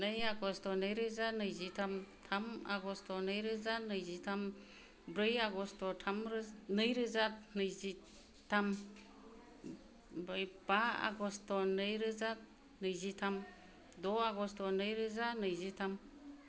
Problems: low volume